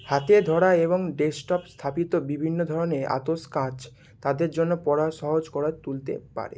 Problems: constant background noise